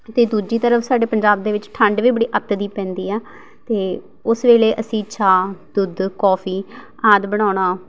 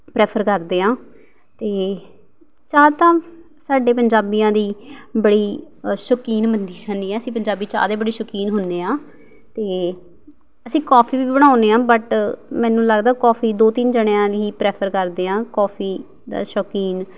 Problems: background sounds at intervals